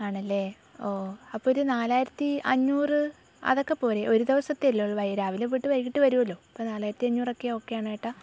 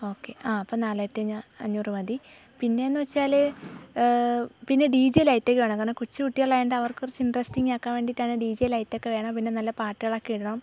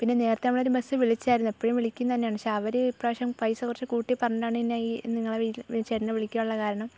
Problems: low volume